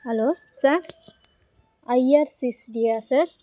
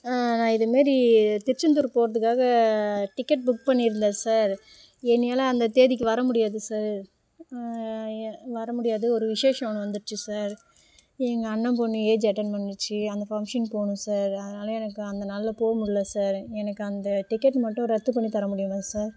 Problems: background sounds at intervals